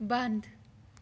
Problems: none marked